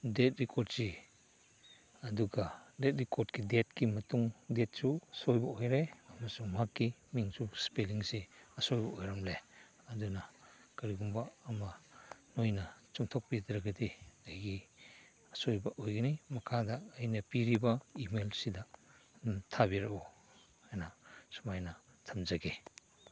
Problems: background sounds at intervals